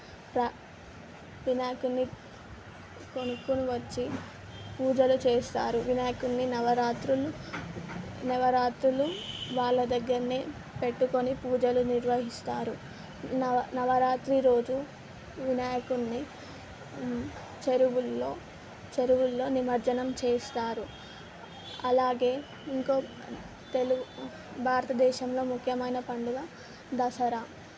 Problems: constant background noise